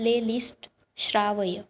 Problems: none marked